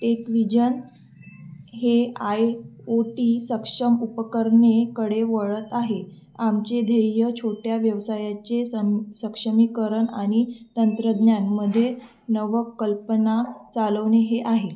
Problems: background sounds at intervals